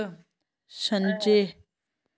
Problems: constant background noise, echo